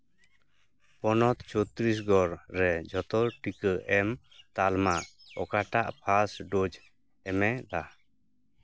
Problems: constant background noise